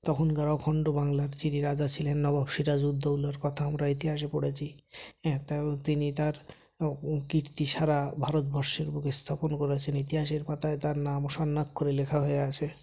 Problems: none marked